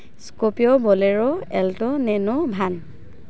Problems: constant background noise